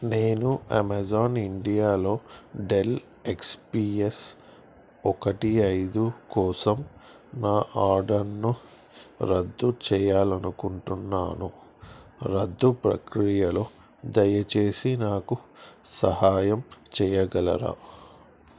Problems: background sounds at intervals